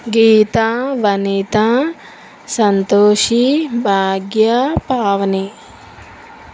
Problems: constant background noise